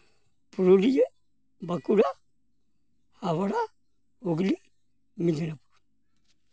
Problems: background sounds at intervals